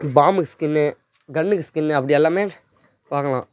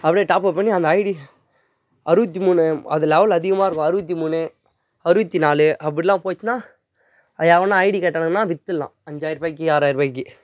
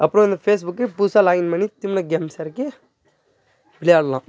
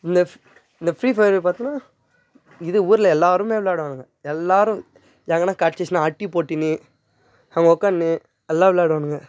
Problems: background conversations at intervals